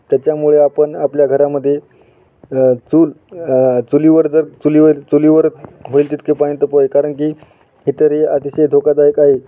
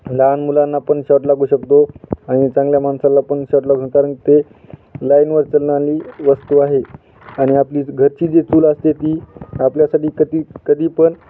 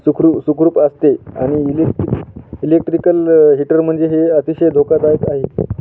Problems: constant background noise, background conversations at intervals